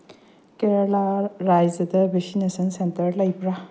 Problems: low volume